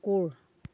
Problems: constant background noise